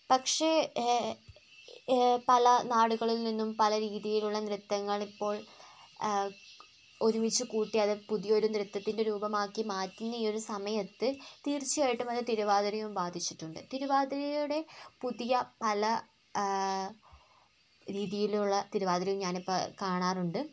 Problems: none marked